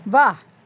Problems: none marked